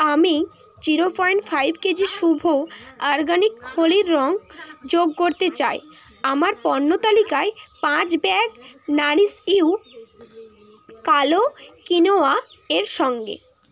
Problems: constant background noise, background conversations at intervals